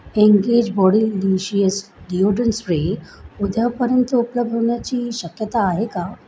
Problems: constant background noise